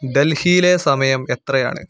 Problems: background sounds at intervals